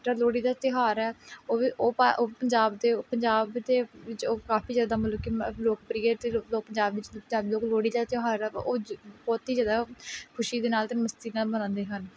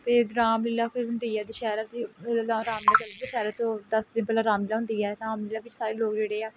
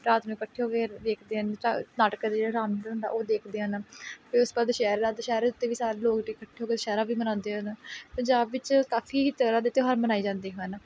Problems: background conversations at intervals